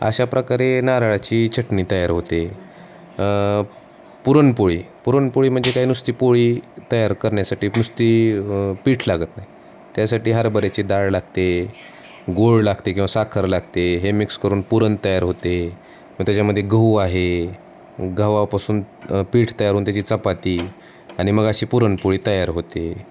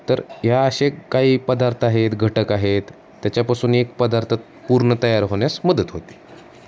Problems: none marked